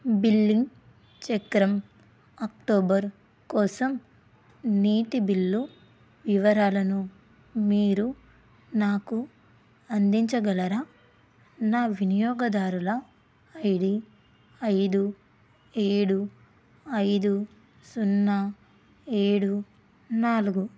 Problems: constant background noise